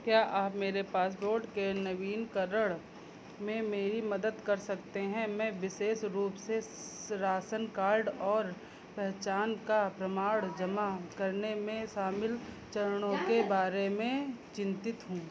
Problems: constant background noise, low volume